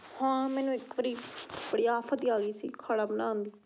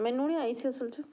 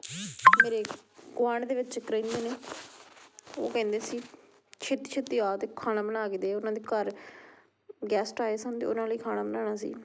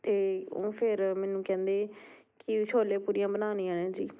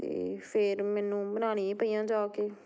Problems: none marked